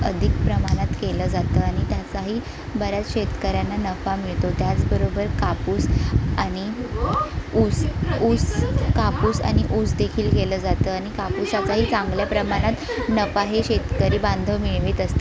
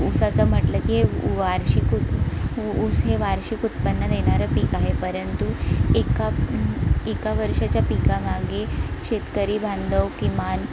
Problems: constant background noise, continuous background conversations